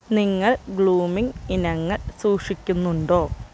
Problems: constant background noise